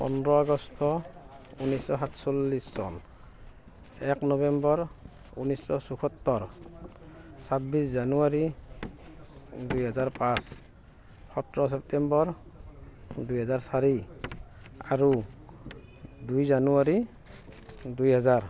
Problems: background sounds at intervals